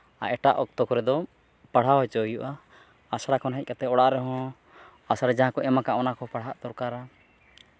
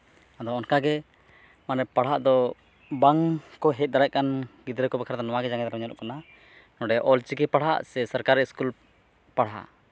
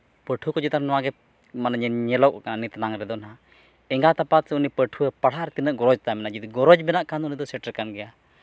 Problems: none marked